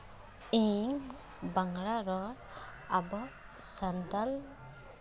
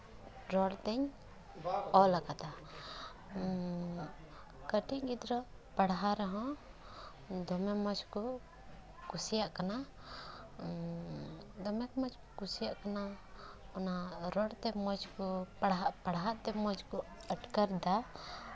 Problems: background sounds at intervals